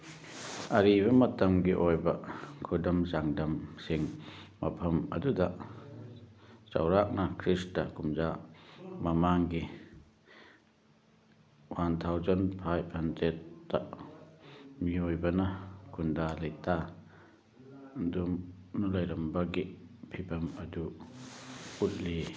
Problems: background sounds at intervals, background conversations at intervals